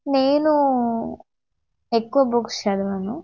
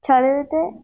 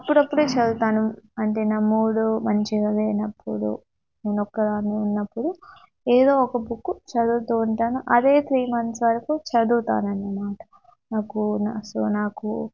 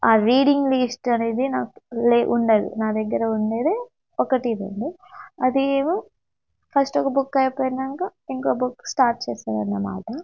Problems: none marked